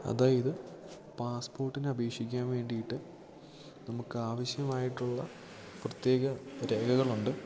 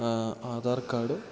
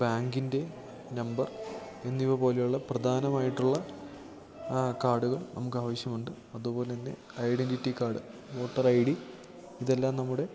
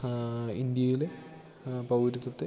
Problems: background sounds at intervals, low volume